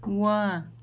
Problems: none marked